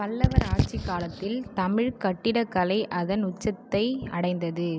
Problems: background conversations at intervals